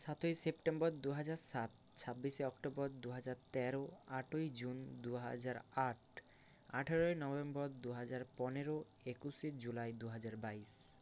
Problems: constant background noise